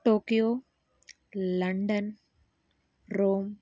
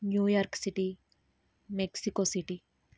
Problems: none marked